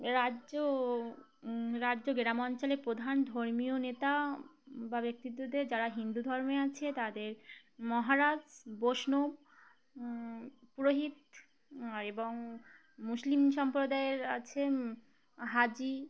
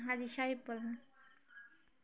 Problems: continuous background conversations